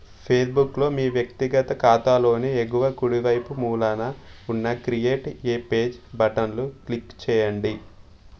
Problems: none marked